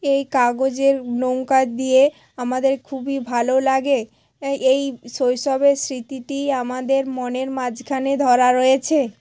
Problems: constant background noise, background conversations at intervals